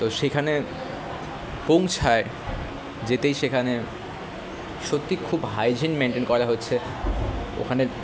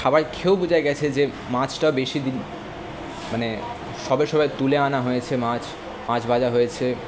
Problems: constant background noise, background conversations at intervals